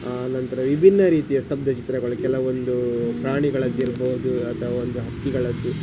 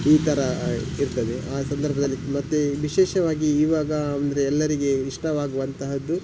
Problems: background sounds at intervals